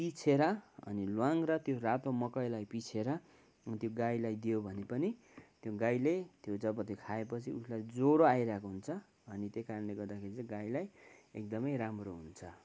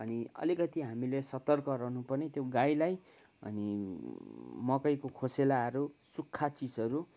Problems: background sounds at intervals